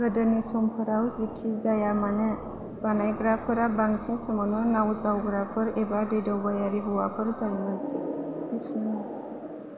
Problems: constant background noise